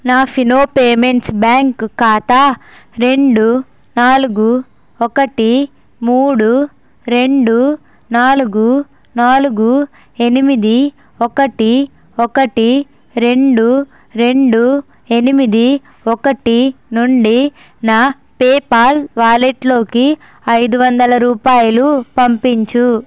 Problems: constant background noise